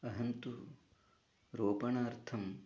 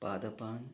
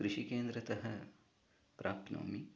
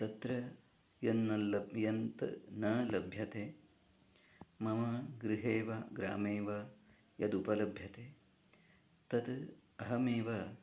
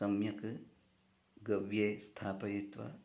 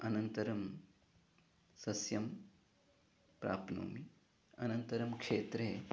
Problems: background conversations at intervals, low volume